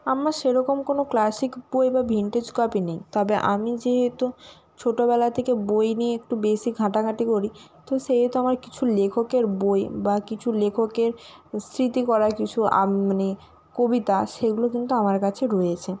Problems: constant background noise